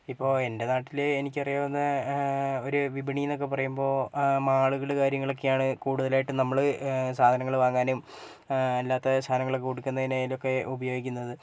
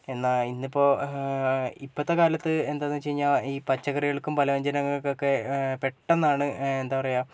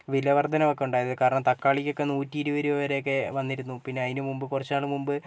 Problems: none marked